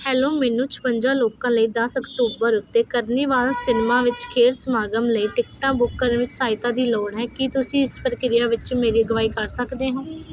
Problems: constant background noise